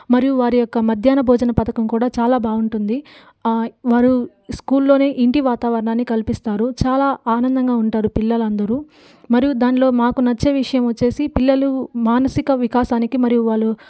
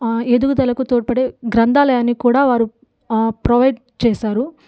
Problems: background sounds at intervals